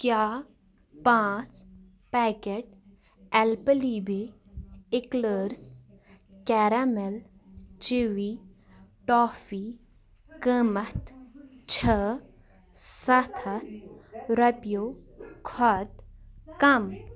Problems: background sounds at intervals